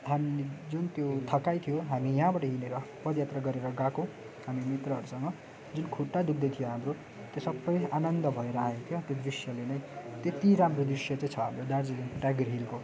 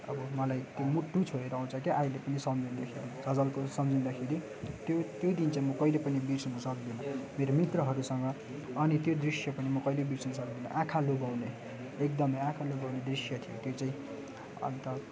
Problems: constant background noise